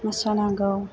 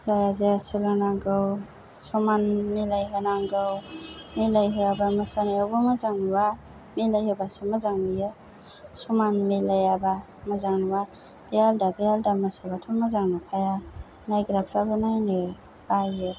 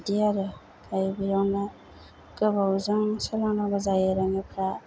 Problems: low volume